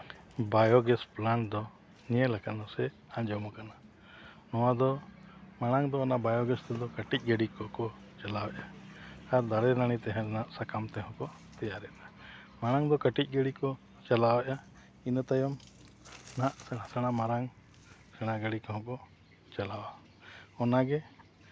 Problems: background sounds at intervals